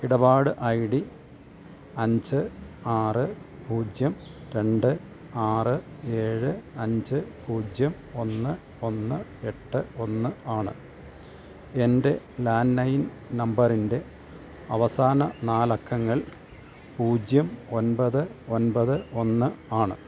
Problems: none marked